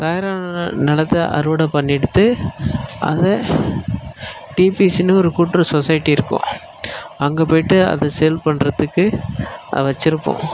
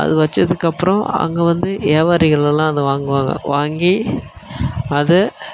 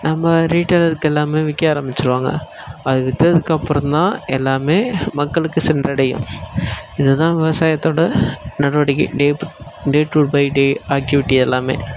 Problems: background sounds at intervals